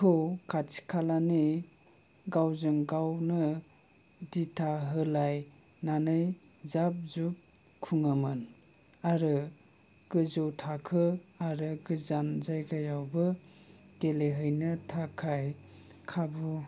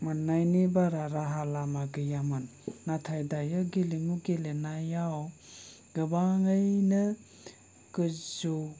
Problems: low volume